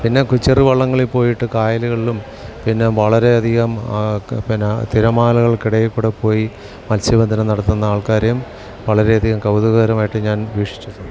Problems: background sounds at intervals